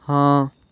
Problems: none marked